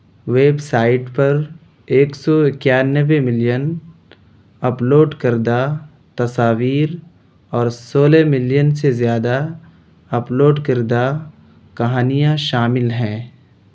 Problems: none marked